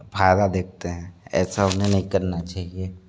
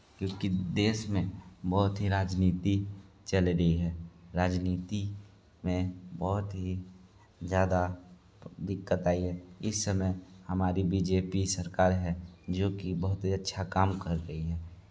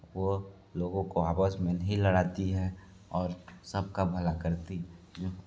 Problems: constant background noise